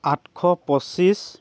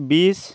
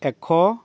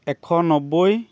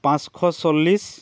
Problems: constant background noise, continuous background conversations